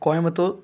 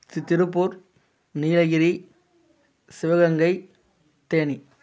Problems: constant background noise